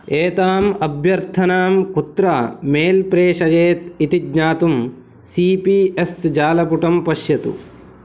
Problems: none marked